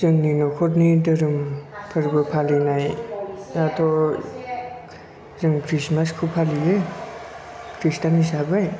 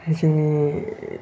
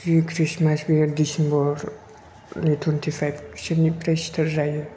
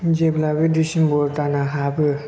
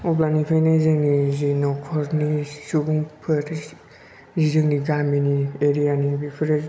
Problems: low volume